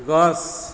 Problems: background sounds at intervals